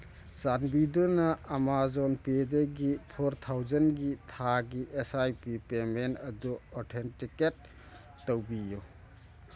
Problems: background sounds at intervals